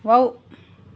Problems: low volume